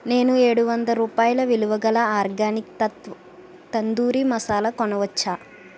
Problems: constant background noise